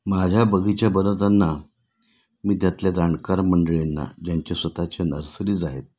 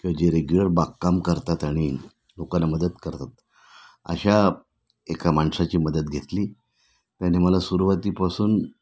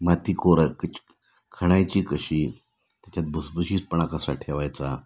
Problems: none marked